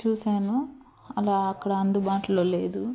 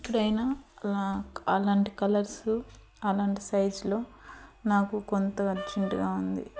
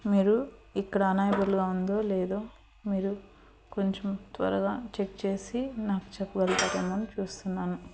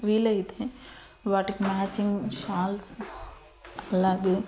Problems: none marked